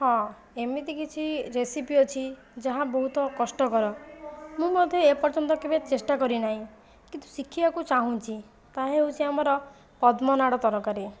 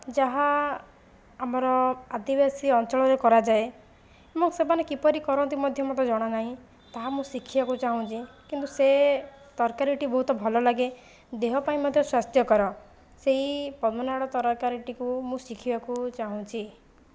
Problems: background sounds at intervals